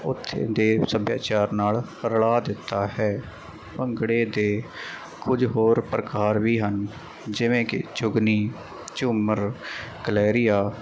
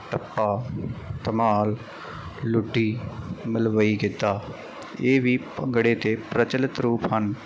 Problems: none marked